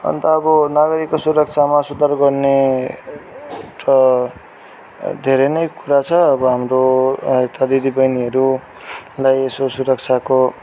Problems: background sounds at intervals